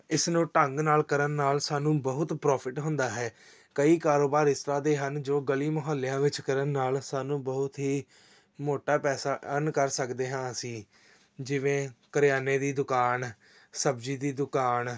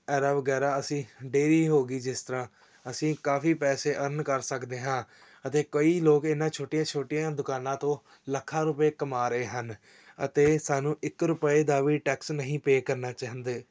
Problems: none marked